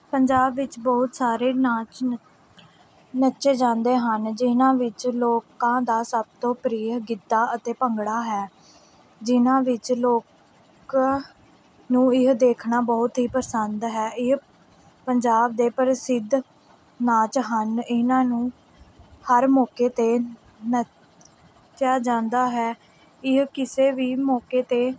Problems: background sounds at intervals